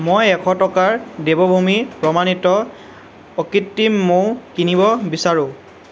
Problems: none marked